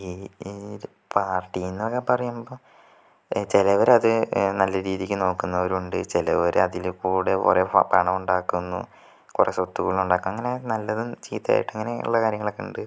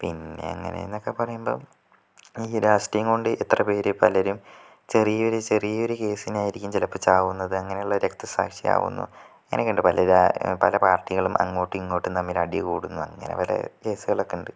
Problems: none marked